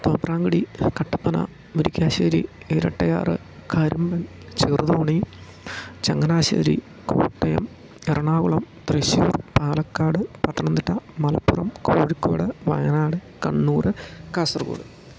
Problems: constant background noise, low volume